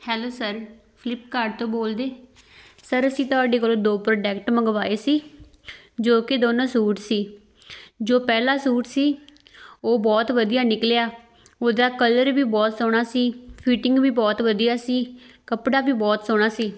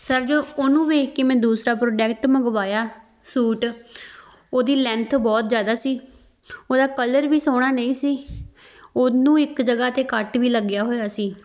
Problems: background sounds at intervals